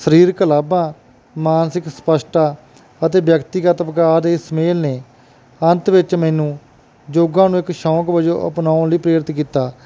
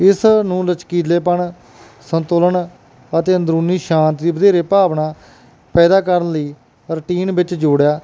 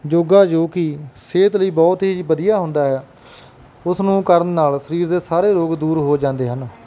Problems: none marked